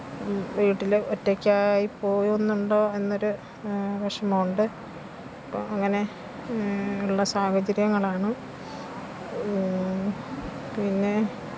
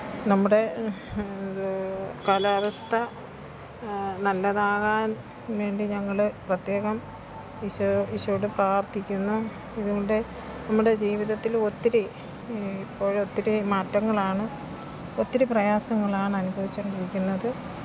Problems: constant background noise